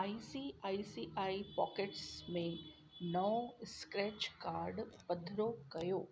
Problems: constant background noise